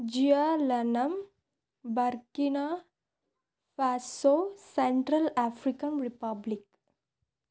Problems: none marked